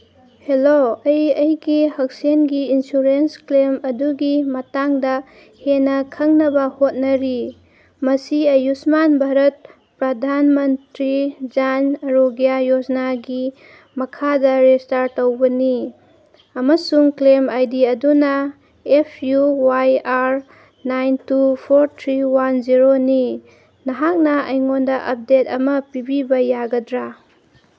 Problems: none marked